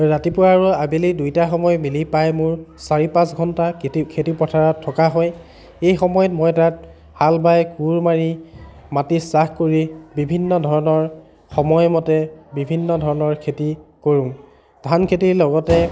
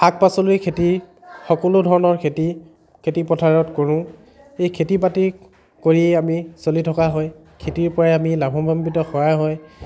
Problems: background sounds at intervals, continuous background conversations